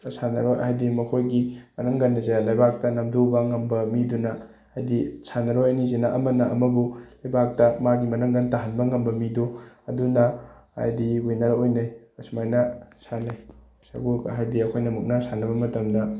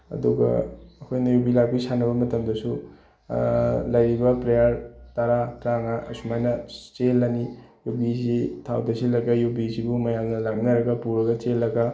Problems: background sounds at intervals